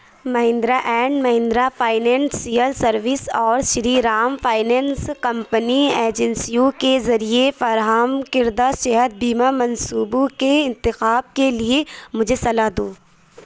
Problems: none marked